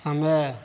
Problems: constant background noise